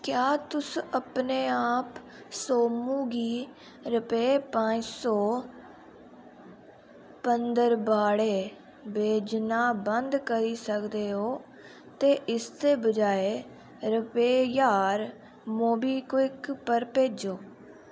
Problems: constant background noise